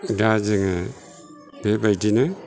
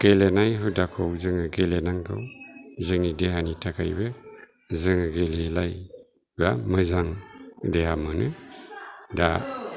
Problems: low volume